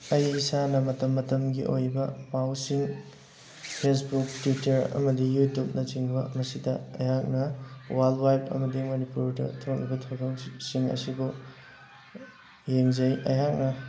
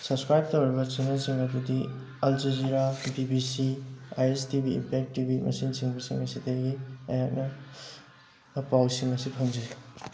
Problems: constant background noise